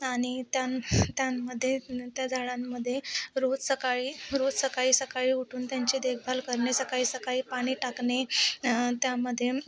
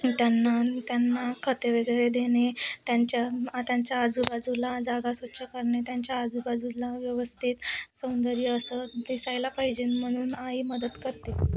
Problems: none marked